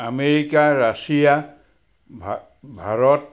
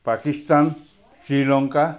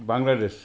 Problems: background sounds at intervals